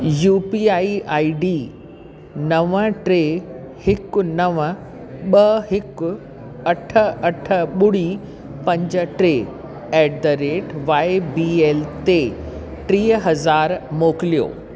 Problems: constant background noise, echo